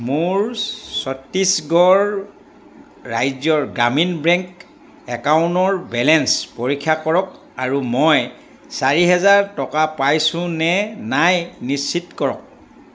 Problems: constant background noise